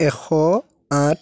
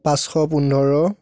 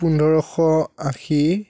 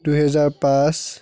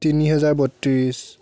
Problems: continuous background conversations